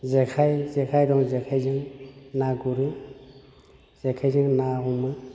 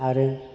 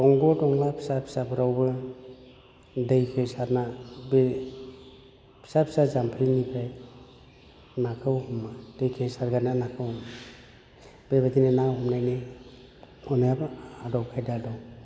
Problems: none marked